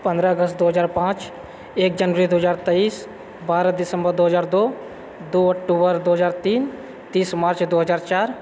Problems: none marked